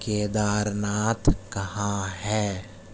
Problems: constant background noise